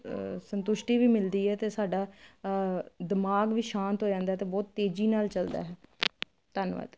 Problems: none marked